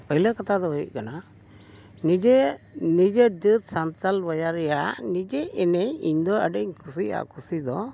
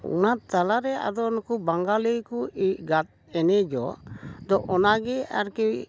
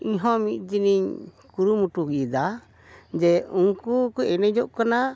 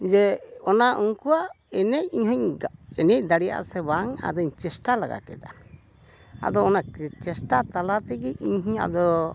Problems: none marked